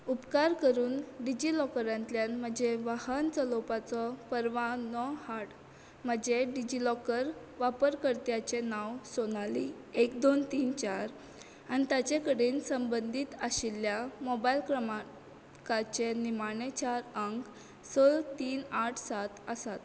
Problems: none marked